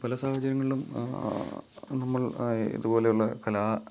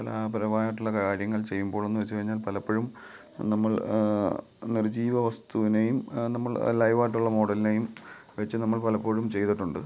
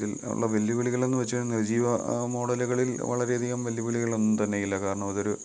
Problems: background sounds at intervals